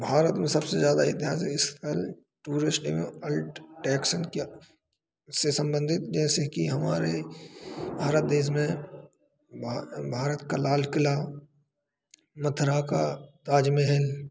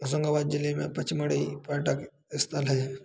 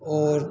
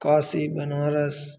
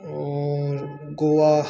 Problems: background sounds at intervals